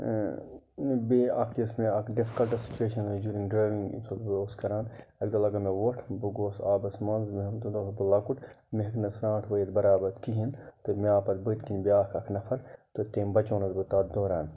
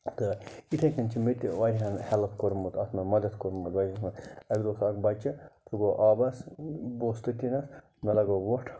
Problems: none marked